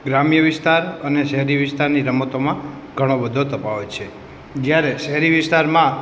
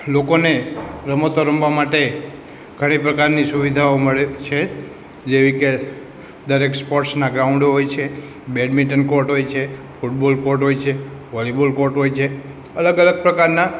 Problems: constant background noise